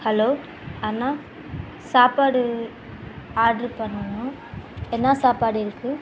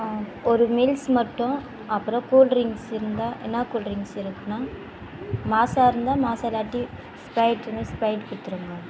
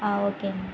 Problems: constant background noise